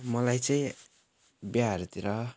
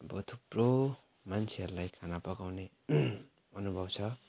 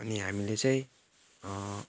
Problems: none marked